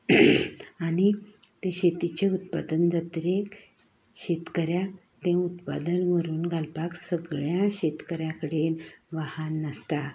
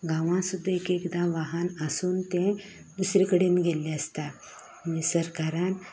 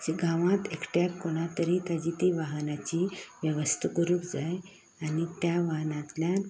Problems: none marked